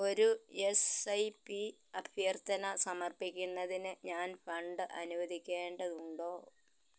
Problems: low volume